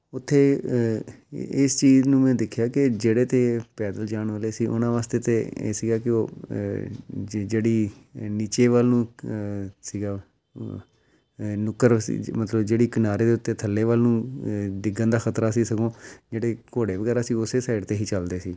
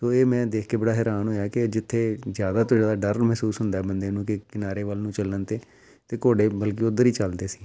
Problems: background sounds at intervals